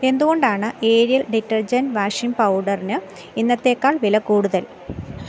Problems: background sounds at intervals